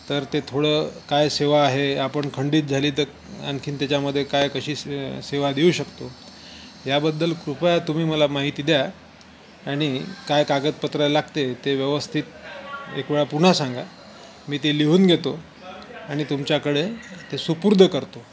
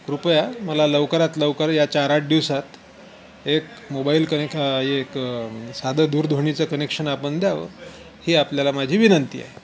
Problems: constant background noise